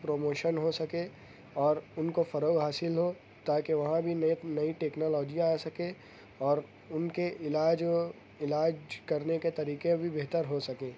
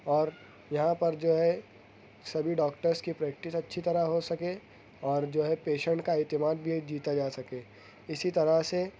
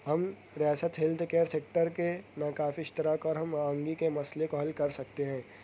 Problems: constant background noise